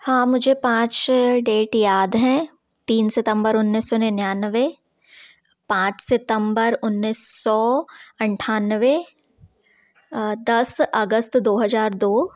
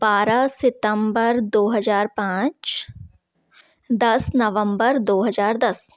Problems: background sounds at intervals